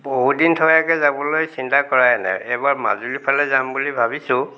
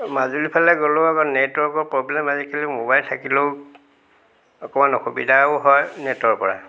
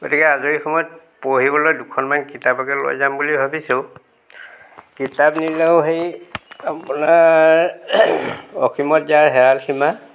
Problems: background sounds at intervals